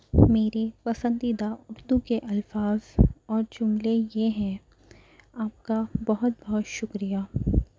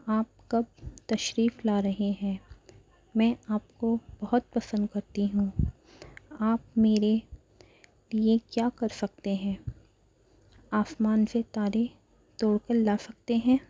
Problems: none marked